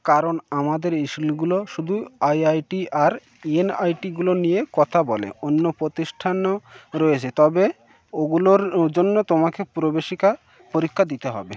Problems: background sounds at intervals